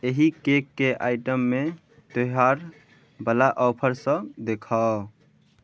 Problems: none marked